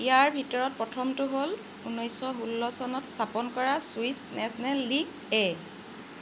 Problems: none marked